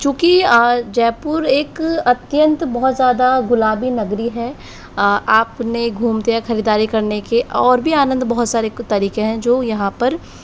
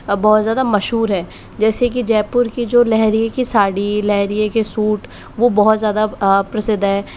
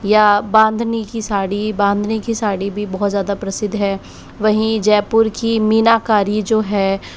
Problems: none marked